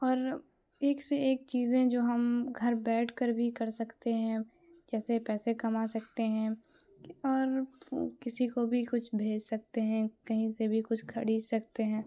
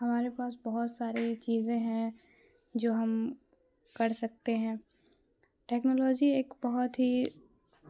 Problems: constant background noise